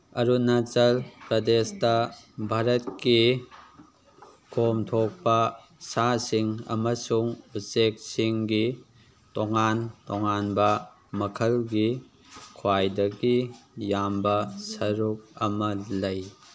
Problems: background sounds at intervals